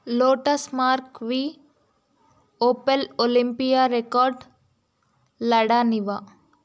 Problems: none marked